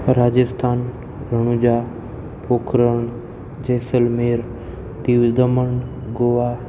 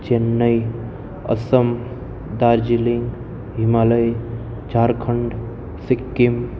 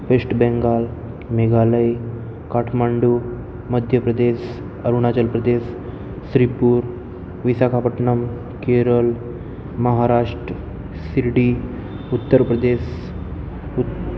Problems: none marked